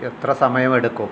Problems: constant background noise